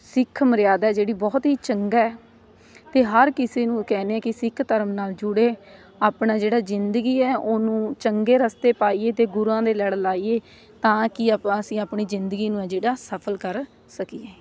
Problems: constant background noise, background conversations at intervals